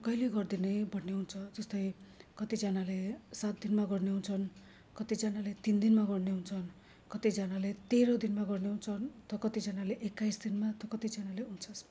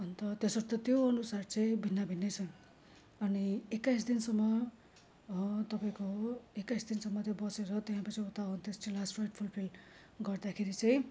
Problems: low volume